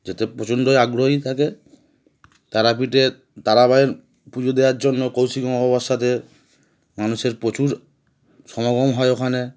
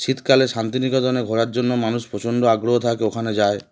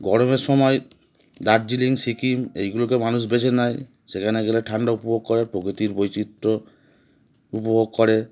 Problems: constant background noise